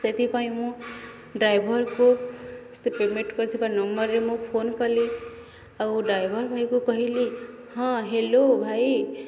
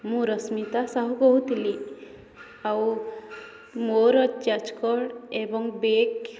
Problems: constant background noise, continuous background conversations